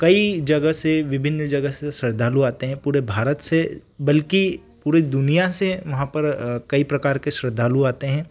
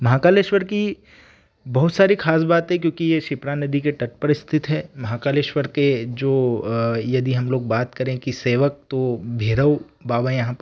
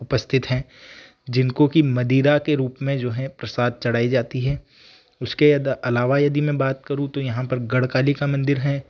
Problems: none marked